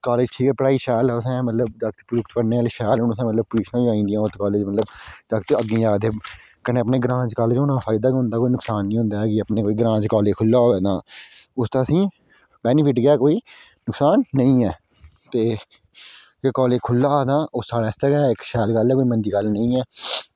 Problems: none marked